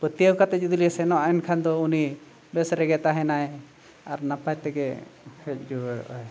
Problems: background sounds at intervals